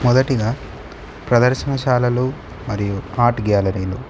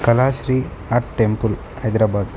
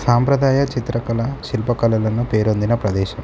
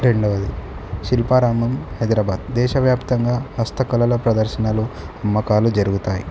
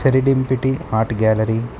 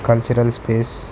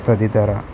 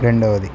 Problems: none marked